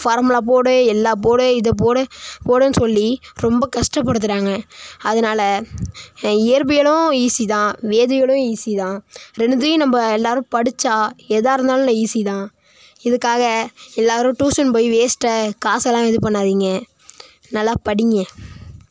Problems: background sounds at intervals